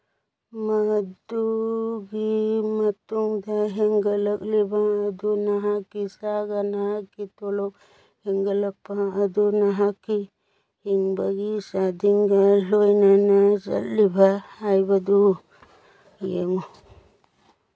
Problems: background sounds at intervals